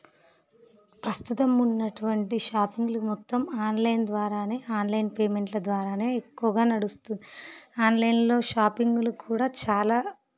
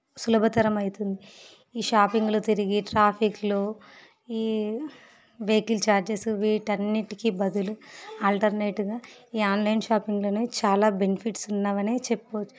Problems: background sounds at intervals